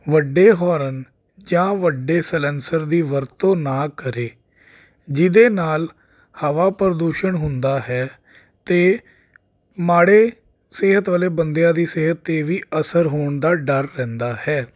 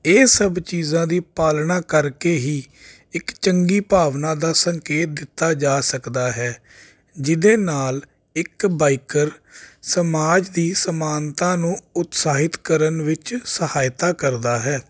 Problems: none marked